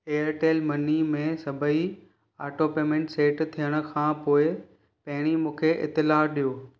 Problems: none marked